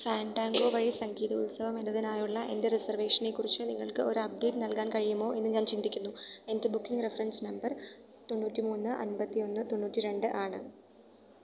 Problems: none marked